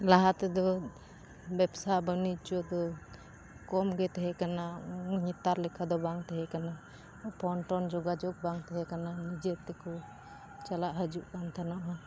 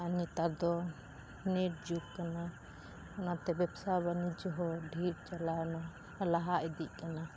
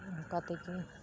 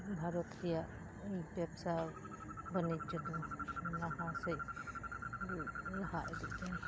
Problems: constant background noise, low volume